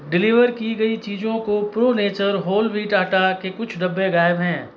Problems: background conversations at intervals